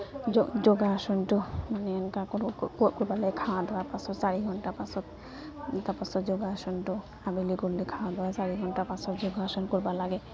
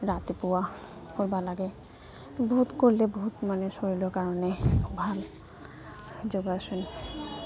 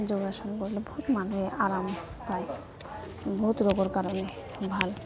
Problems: constant background noise